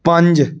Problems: none marked